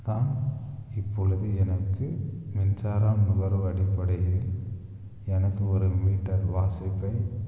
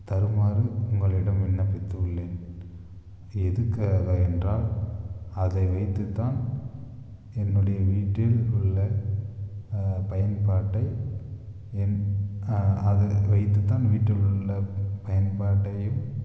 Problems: none marked